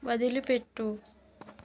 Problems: none marked